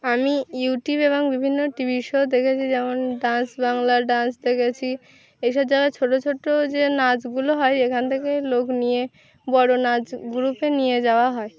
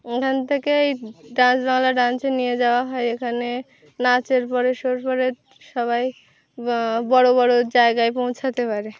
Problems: constant background noise